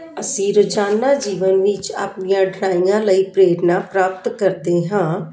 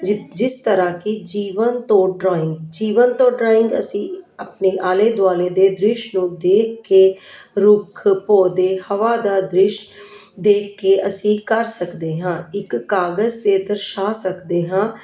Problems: continuous background conversations